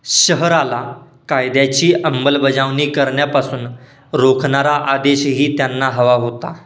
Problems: background sounds at intervals, background conversations at intervals